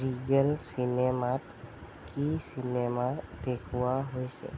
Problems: constant background noise